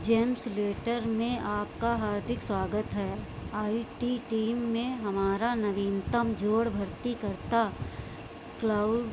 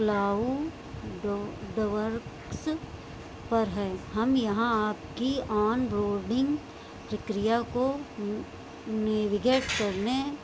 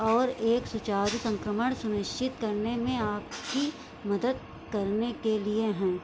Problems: constant background noise